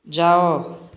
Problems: none marked